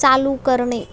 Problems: none marked